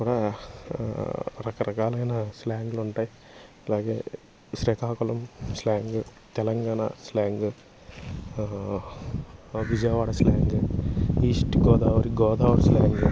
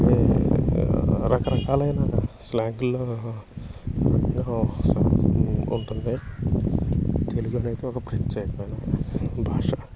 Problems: constant background noise